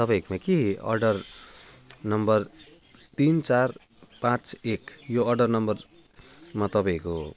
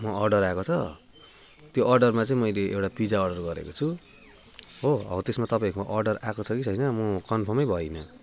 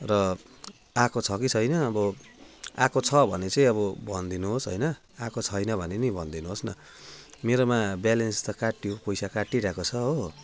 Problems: constant background noise